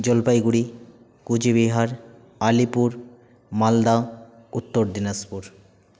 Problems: none marked